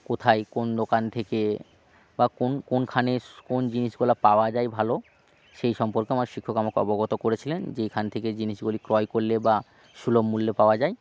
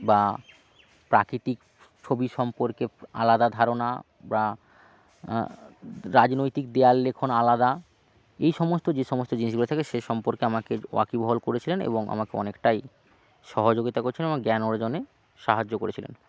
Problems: constant background noise